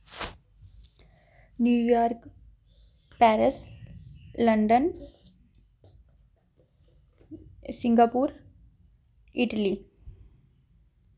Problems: background sounds at intervals